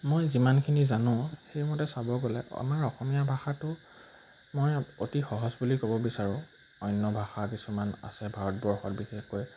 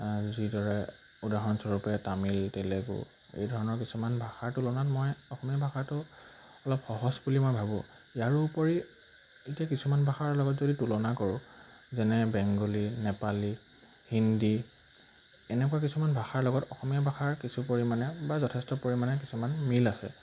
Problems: none marked